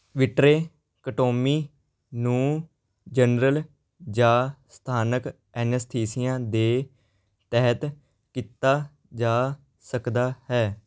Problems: background sounds at intervals